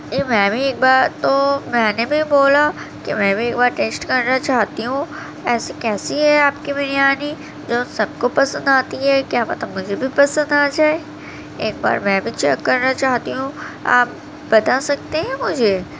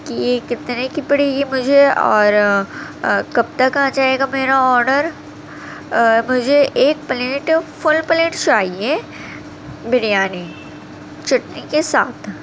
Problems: constant background noise